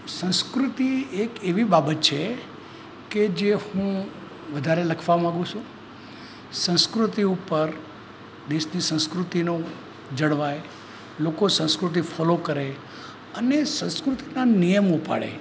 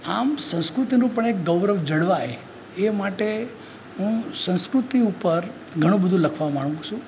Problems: constant background noise